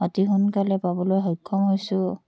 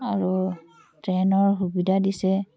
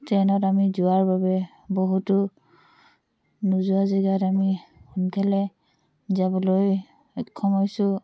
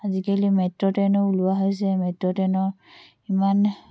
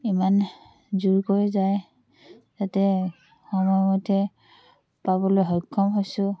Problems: background conversations at intervals